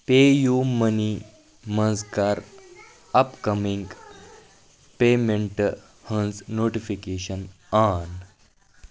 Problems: none marked